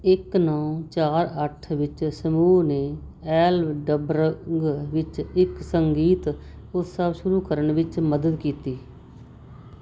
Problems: constant background noise